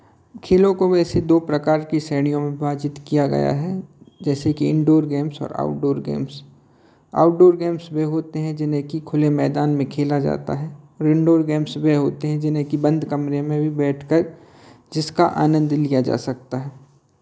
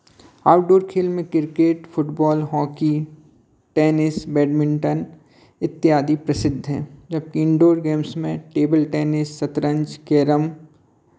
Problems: none marked